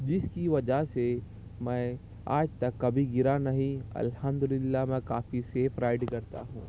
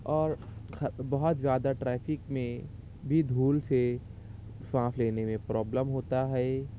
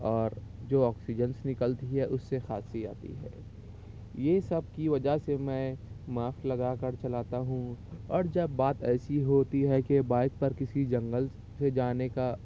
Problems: none marked